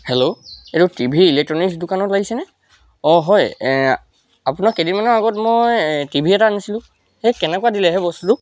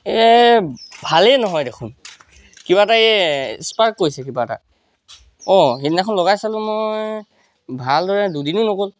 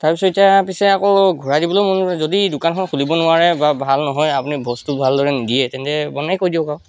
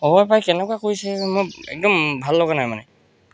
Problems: constant background noise